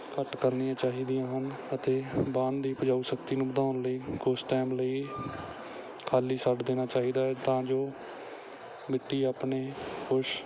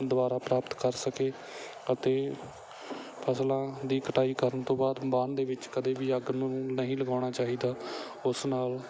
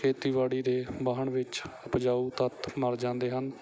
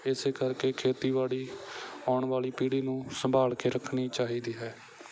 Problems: none marked